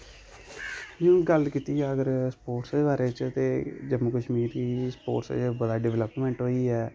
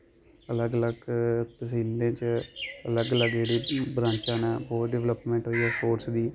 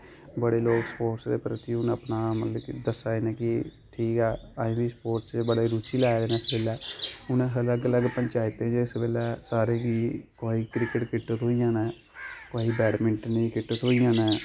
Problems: none marked